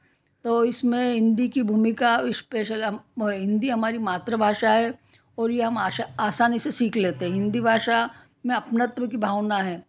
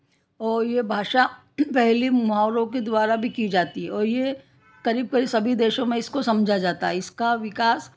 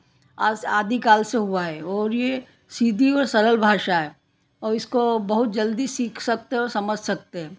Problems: background conversations at intervals